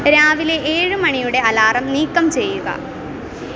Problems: constant background noise